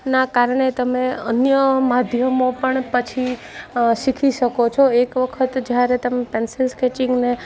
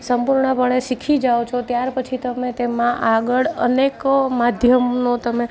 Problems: none marked